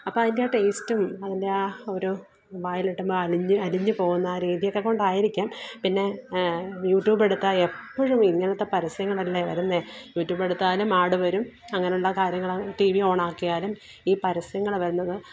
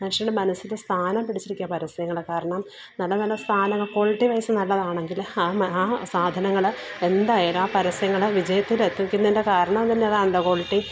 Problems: low volume